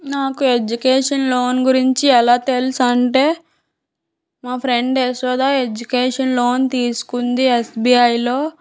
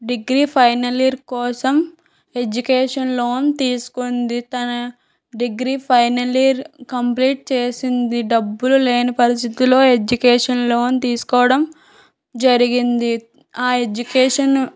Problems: background sounds at intervals